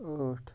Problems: low volume